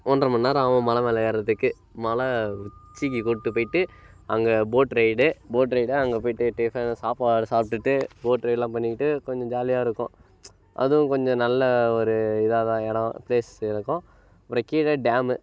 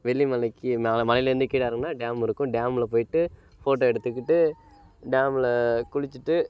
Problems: none marked